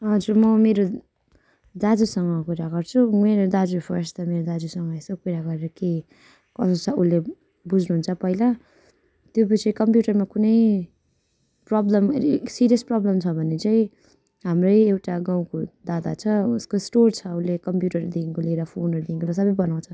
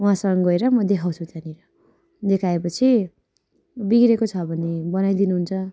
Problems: constant background noise